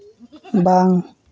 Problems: background sounds at intervals